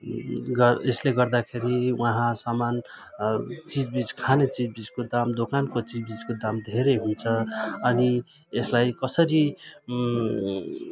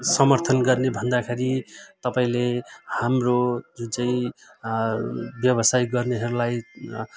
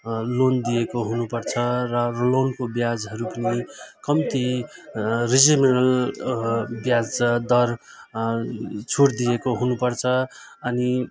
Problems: continuous background conversations